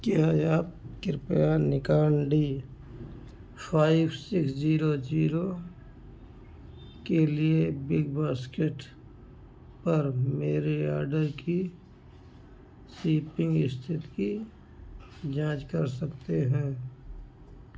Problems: background sounds at intervals, low volume